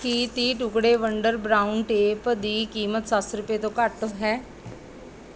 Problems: none marked